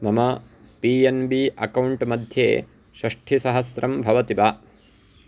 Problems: background sounds at intervals